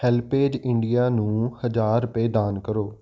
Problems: constant background noise